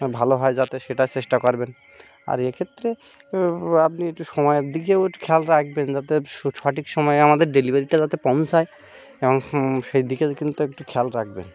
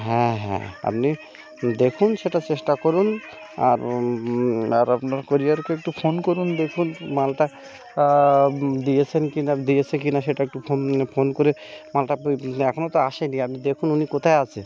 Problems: constant background noise, continuous background conversations